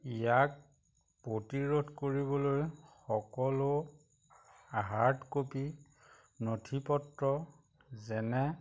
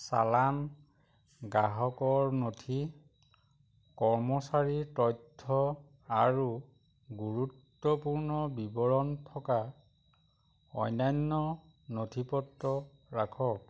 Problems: none marked